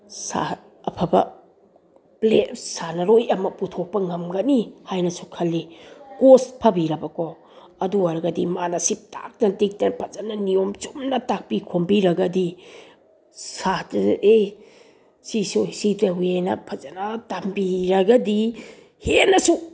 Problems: none marked